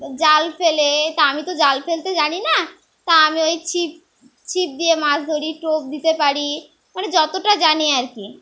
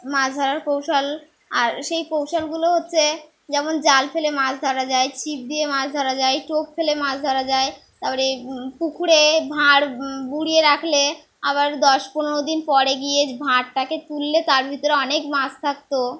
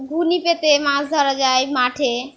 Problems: background sounds at intervals